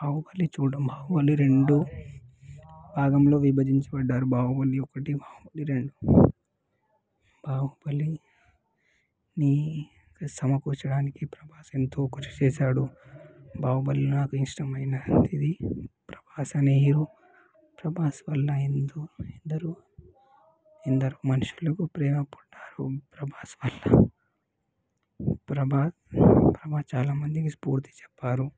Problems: background sounds at intervals, background conversations at intervals, low volume